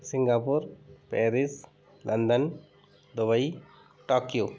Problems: background sounds at intervals